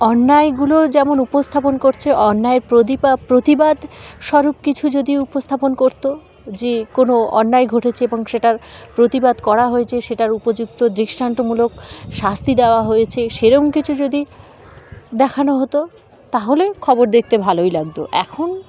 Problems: constant background noise, background conversations at intervals